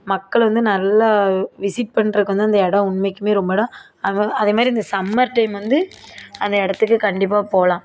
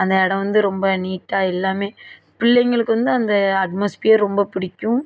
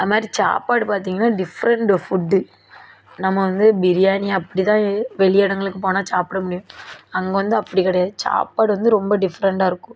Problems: none marked